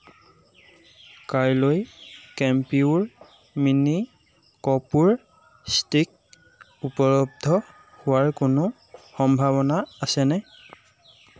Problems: constant background noise